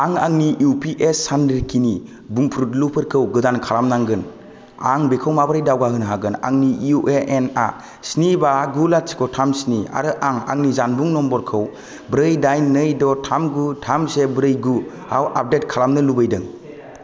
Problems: none marked